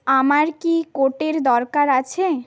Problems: background sounds at intervals, background conversations at intervals